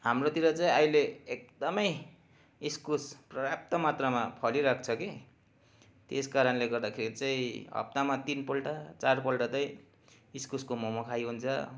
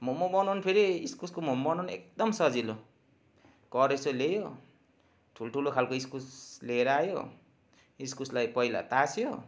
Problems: constant background noise